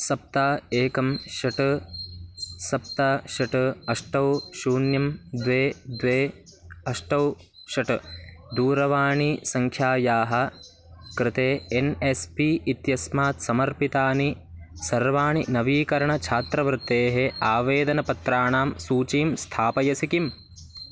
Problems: background sounds at intervals